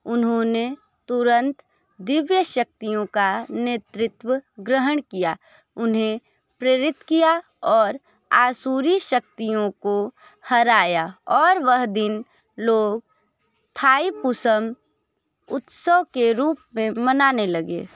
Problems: background sounds at intervals